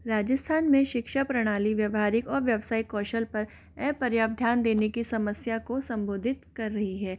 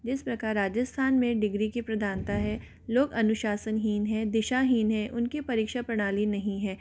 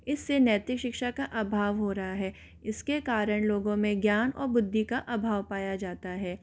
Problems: none marked